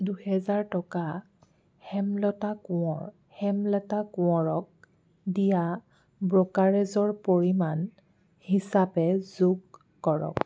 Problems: background sounds at intervals